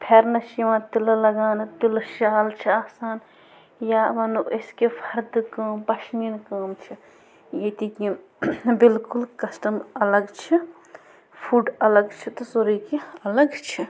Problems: constant background noise